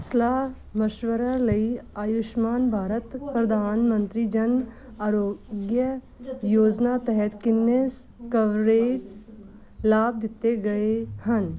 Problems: continuous background conversations